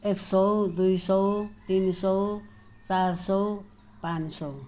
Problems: none marked